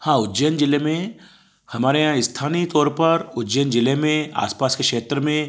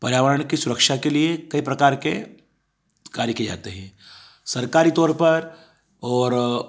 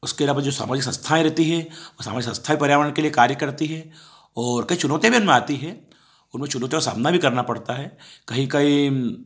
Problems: background sounds at intervals